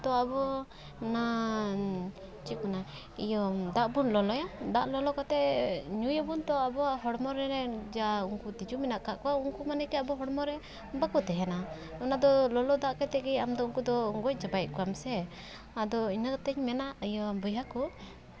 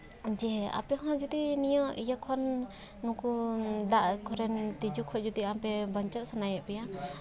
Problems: background sounds at intervals